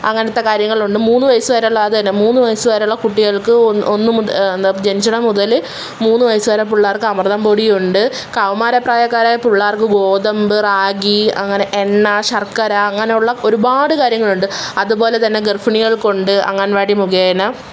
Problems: background sounds at intervals